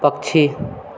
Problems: background conversations at intervals